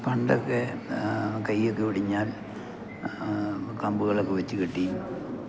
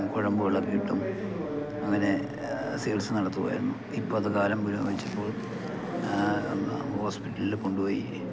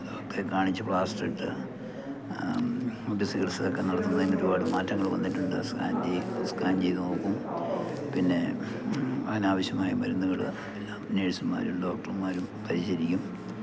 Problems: constant background noise, low volume